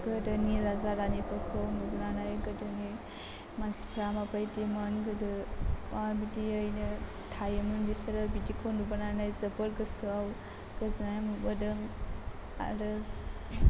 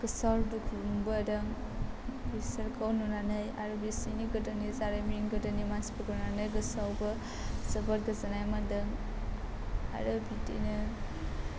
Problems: constant background noise